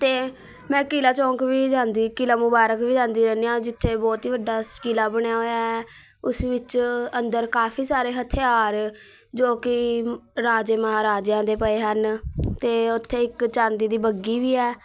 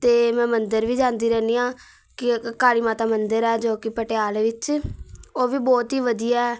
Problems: background sounds at intervals